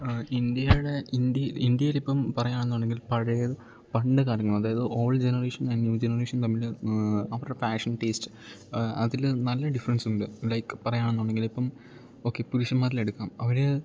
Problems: none marked